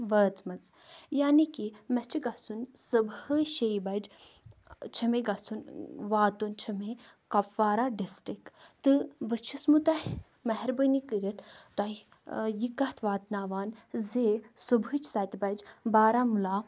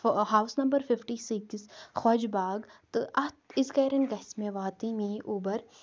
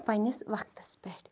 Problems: none marked